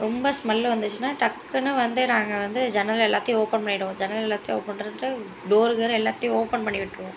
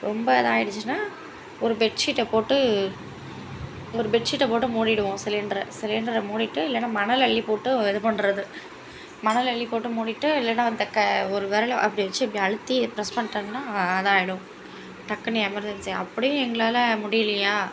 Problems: continuous background conversations